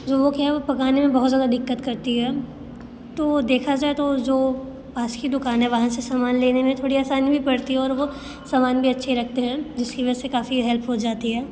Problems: constant background noise